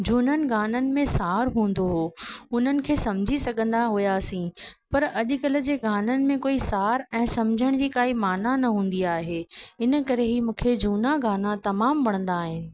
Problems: constant background noise, echo